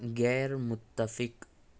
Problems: none marked